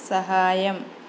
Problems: none marked